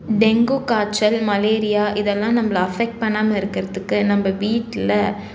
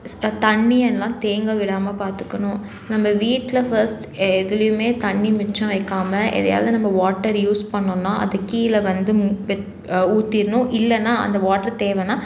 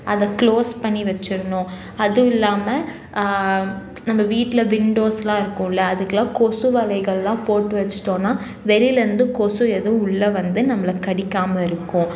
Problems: none marked